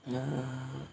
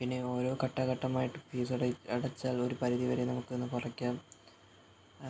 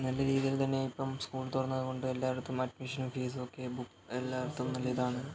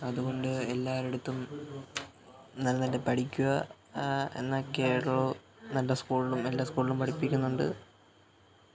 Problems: background sounds at intervals, low volume